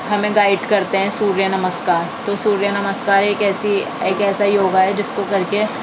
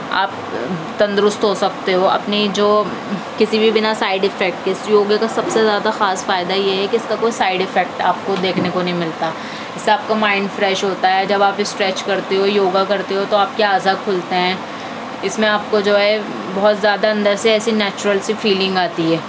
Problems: constant background noise